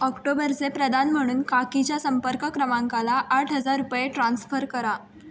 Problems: constant background noise